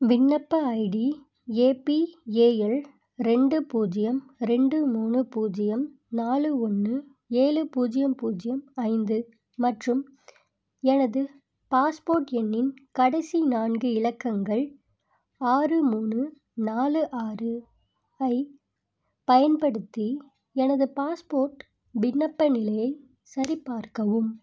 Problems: none marked